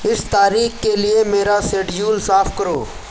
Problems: constant background noise